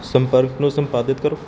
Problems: background sounds at intervals